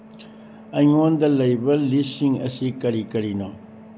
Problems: low volume